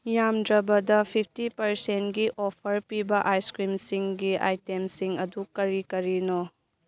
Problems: none marked